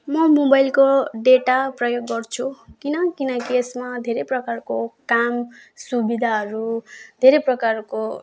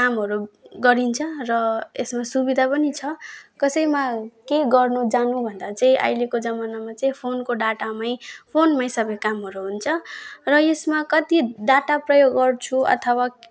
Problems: none marked